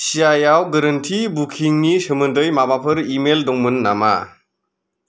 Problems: none marked